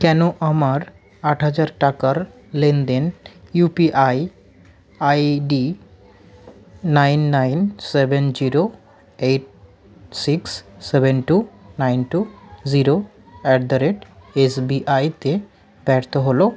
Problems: none marked